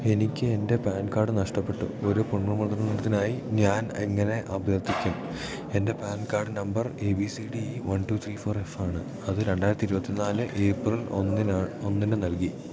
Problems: none marked